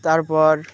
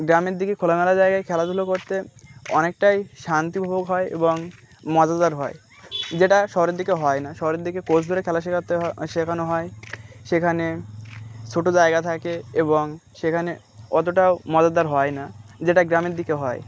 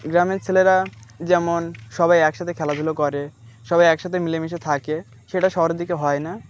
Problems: constant background noise, background conversations at intervals